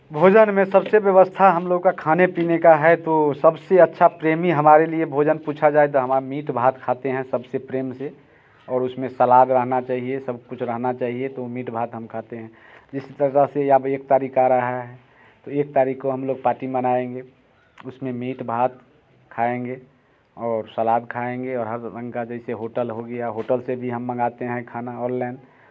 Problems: constant background noise